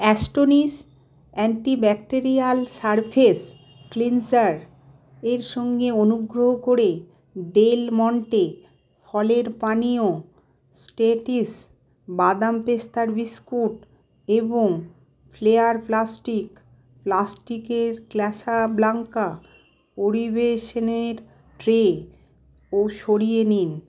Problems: constant background noise